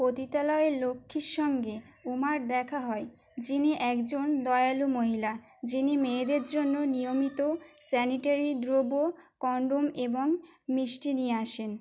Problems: constant background noise